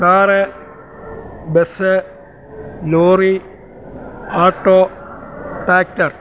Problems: none marked